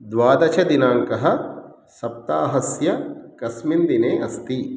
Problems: none marked